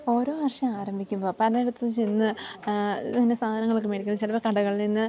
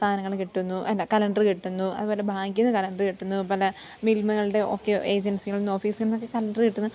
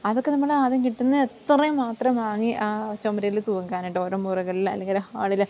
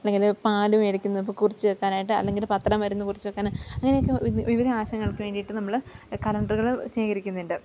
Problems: low volume